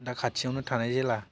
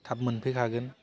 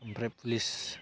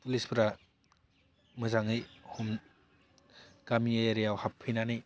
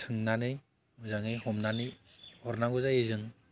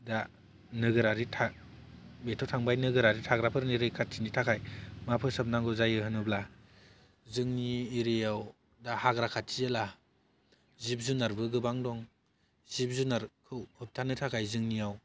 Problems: low volume